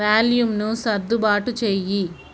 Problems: constant background noise